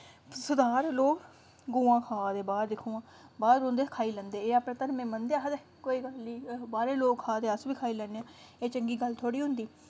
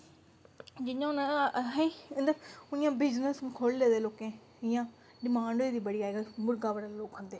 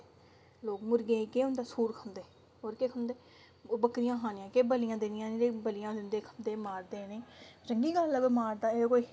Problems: none marked